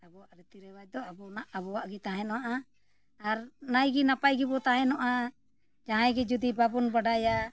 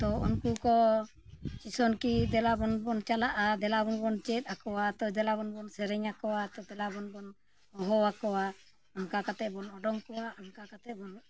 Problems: background sounds at intervals